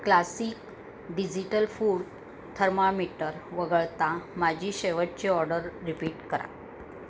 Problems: constant background noise